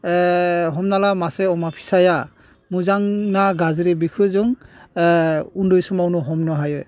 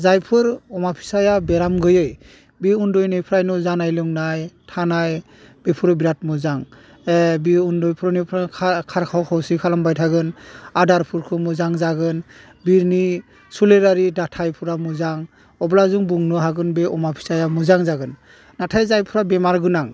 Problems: none marked